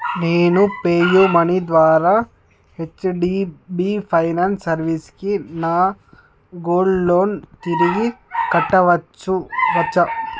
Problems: constant background noise